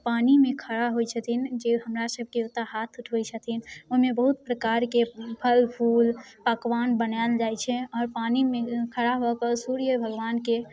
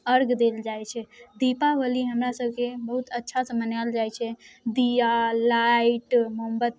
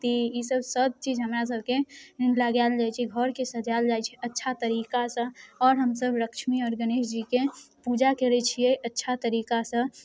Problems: none marked